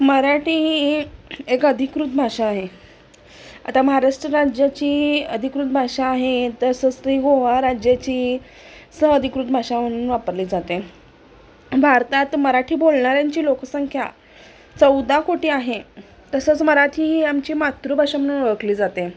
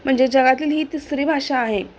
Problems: constant background noise, background conversations at intervals